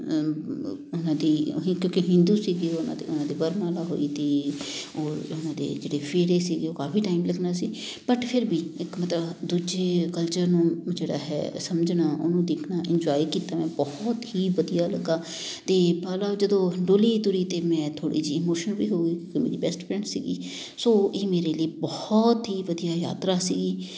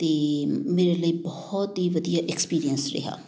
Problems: background sounds at intervals